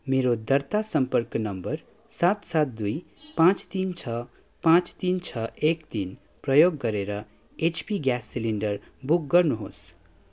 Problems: background sounds at intervals